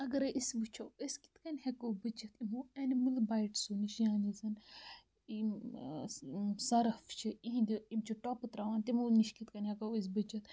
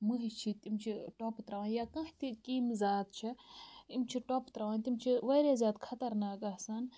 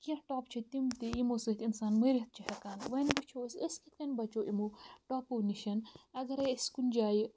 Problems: constant background noise